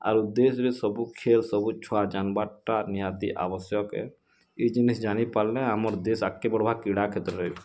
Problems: background sounds at intervals